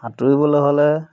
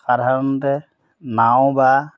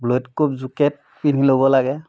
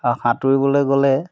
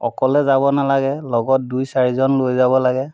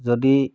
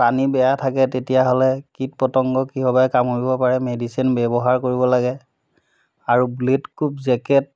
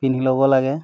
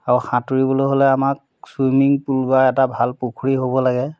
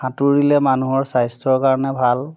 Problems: background sounds at intervals